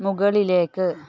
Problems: background sounds at intervals